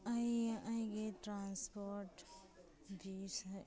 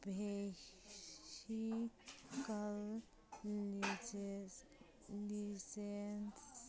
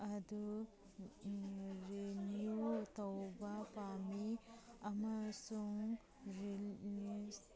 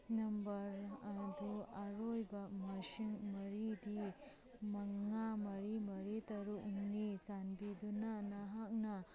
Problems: background sounds at intervals